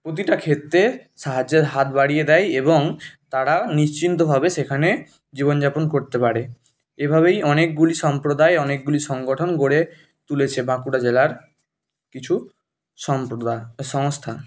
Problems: background sounds at intervals